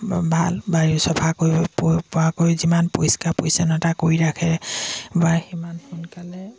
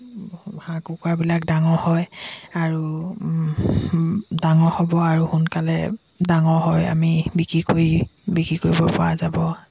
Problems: background sounds at intervals